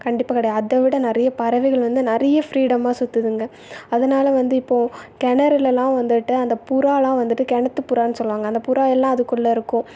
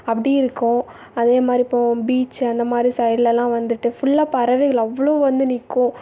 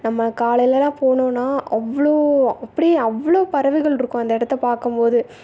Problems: background sounds at intervals